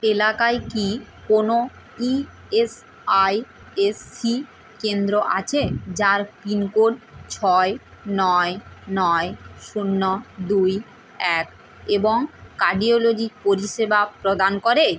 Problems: constant background noise